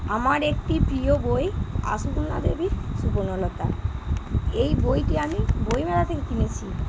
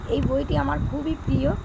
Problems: none marked